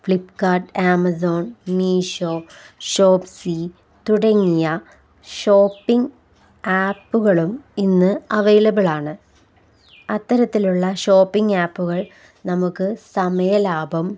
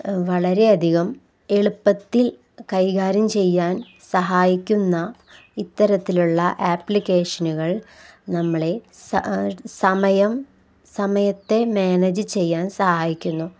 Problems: none marked